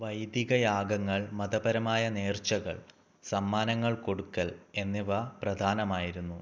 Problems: none marked